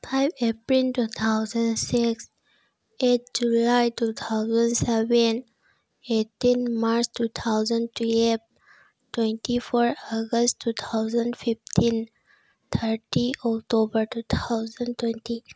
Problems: none marked